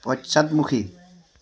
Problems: none marked